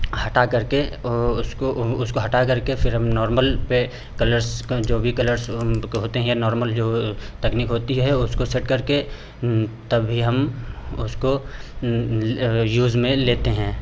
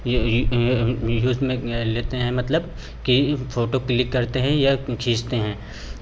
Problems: none marked